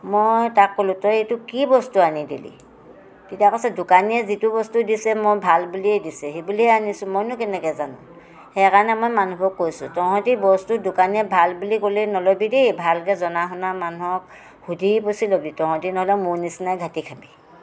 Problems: constant background noise